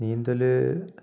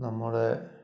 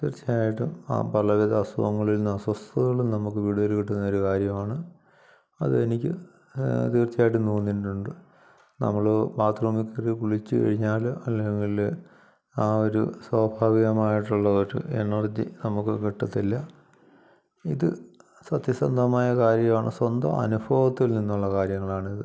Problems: background sounds at intervals